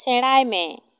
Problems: none marked